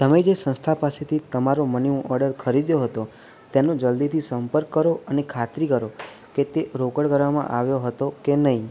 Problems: none marked